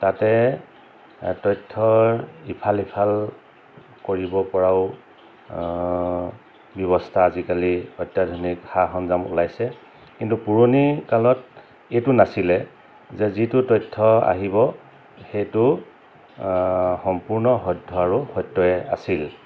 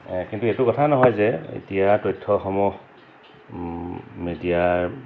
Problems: constant background noise